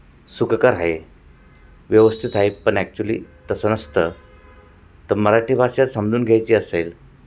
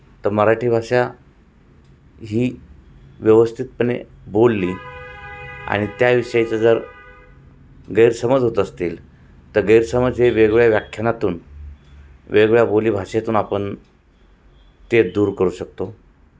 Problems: constant background noise, background conversations at intervals, echo